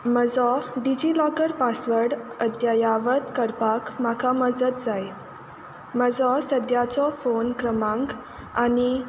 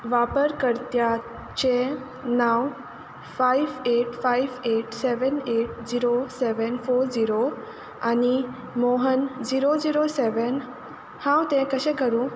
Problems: none marked